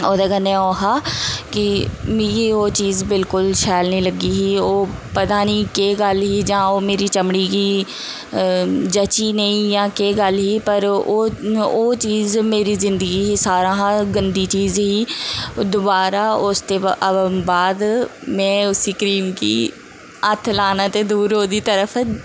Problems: constant background noise